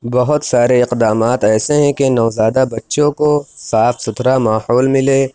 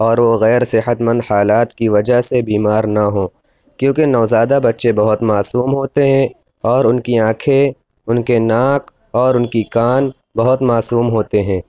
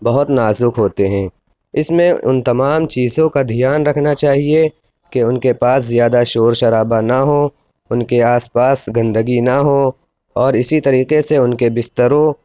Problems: constant background noise